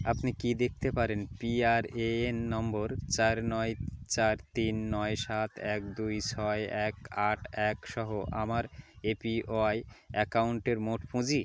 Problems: background sounds at intervals